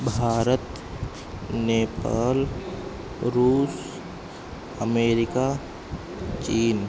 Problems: constant background noise